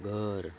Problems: constant background noise